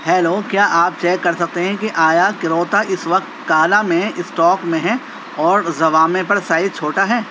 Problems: constant background noise